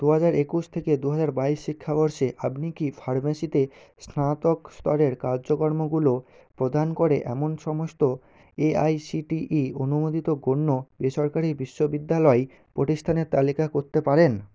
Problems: none marked